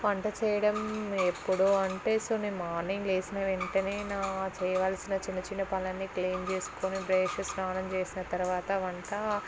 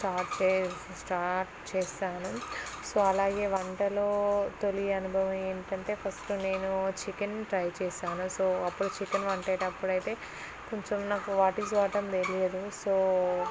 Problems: constant background noise